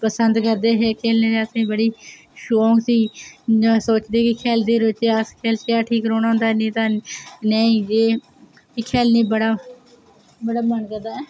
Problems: none marked